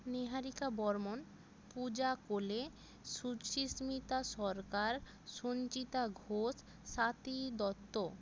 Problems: constant background noise